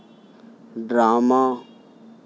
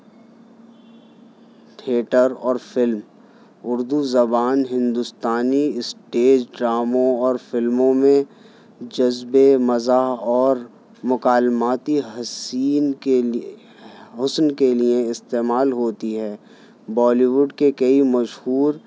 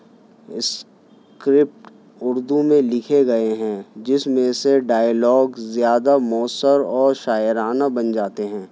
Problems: background sounds at intervals